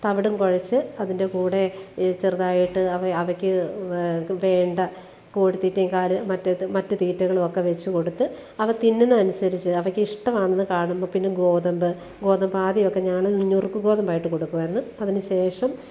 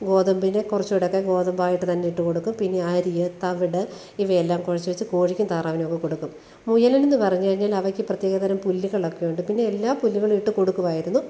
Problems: none marked